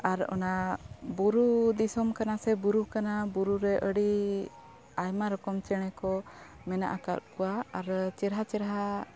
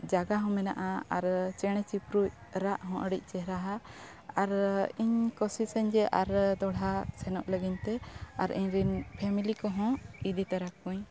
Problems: none marked